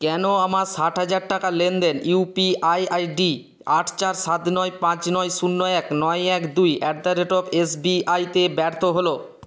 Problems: constant background noise